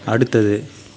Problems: continuous background conversations